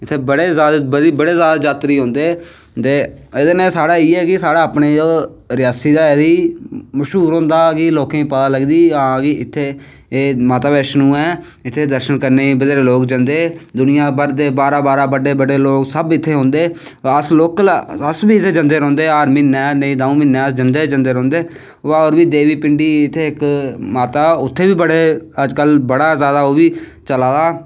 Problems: none marked